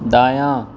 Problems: constant background noise